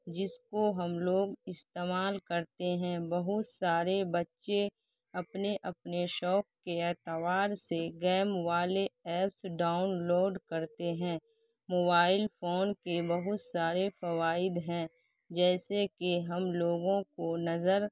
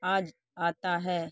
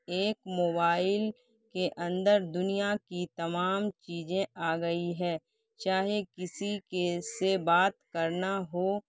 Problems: none marked